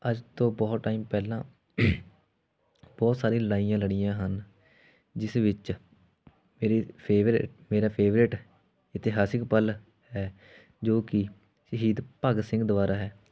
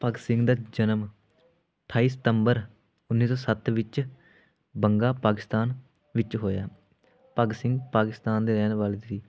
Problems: none marked